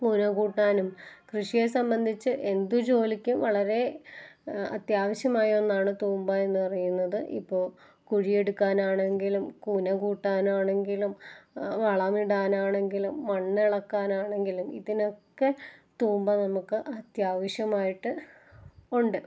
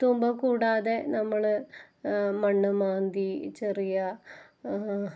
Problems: none marked